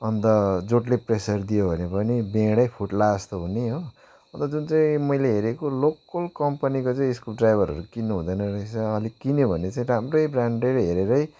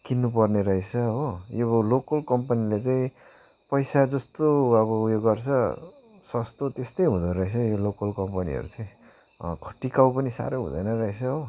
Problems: background sounds at intervals